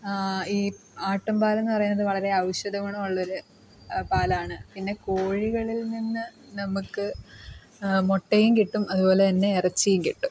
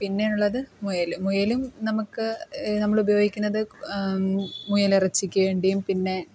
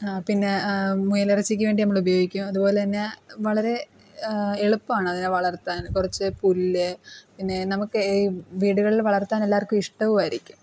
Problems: background sounds at intervals, background conversations at intervals